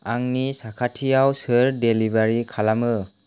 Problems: none marked